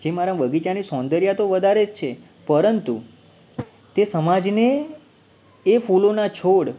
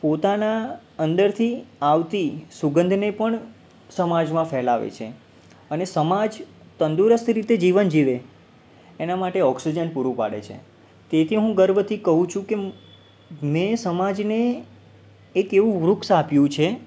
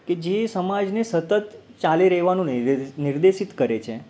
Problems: background sounds at intervals